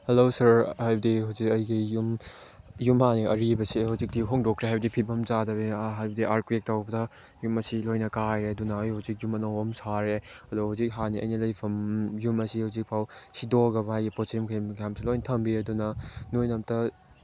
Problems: background sounds at intervals